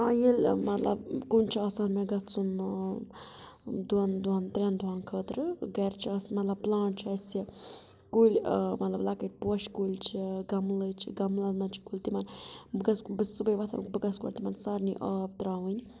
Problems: background sounds at intervals